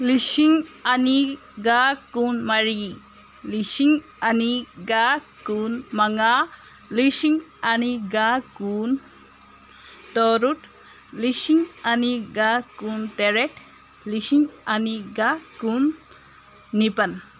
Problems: constant background noise